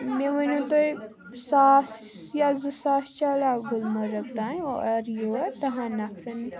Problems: constant background noise